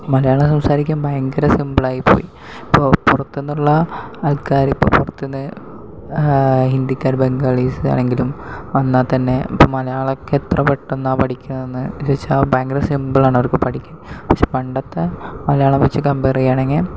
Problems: background sounds at intervals, low volume